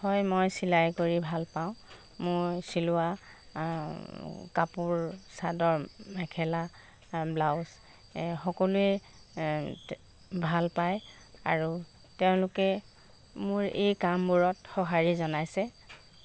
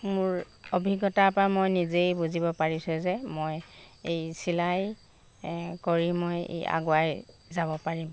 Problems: constant background noise